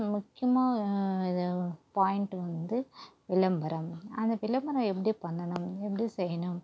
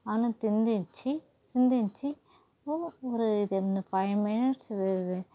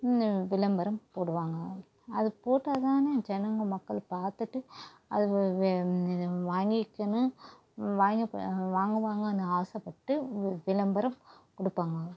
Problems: constant background noise, low volume